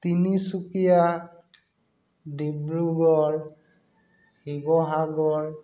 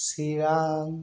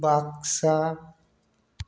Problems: background sounds at intervals